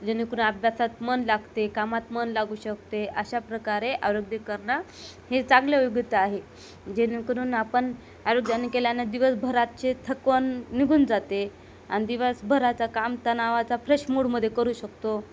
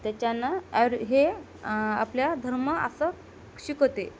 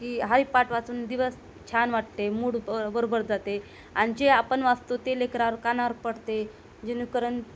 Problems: constant background noise